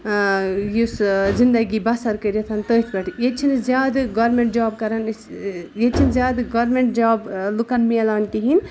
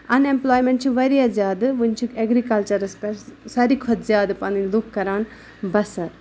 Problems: background sounds at intervals